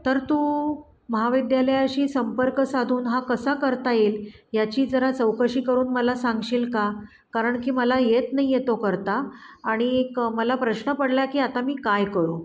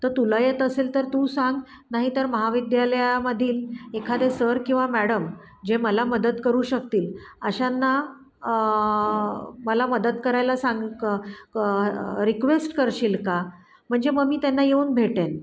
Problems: constant background noise